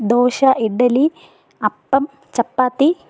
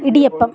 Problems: background conversations at intervals